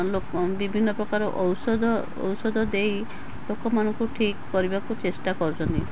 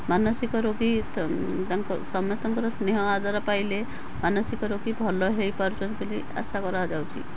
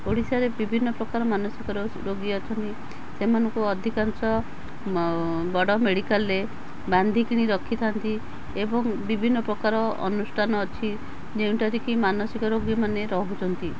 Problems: constant background noise